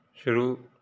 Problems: none marked